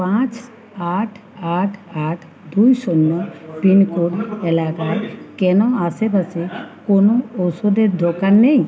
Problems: none marked